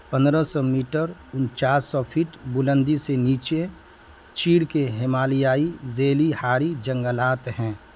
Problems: constant background noise